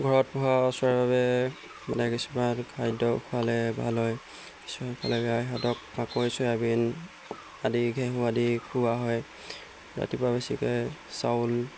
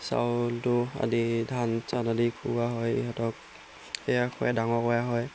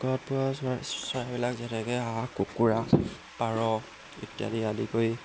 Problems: background sounds at intervals